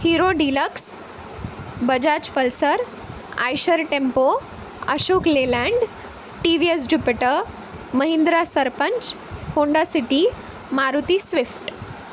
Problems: constant background noise